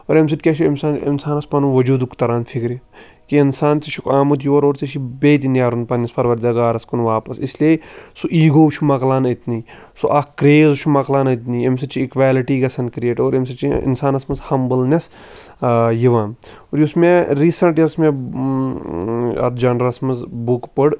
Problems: background sounds at intervals